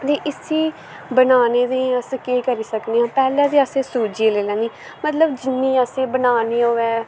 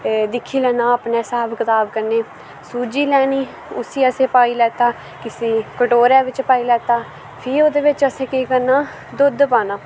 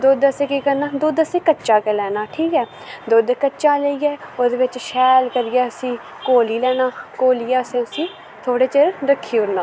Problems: constant background noise